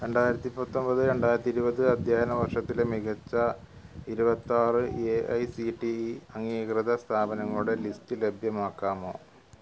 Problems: low volume